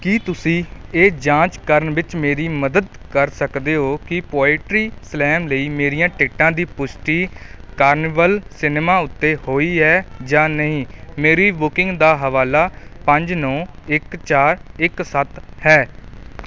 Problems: background sounds at intervals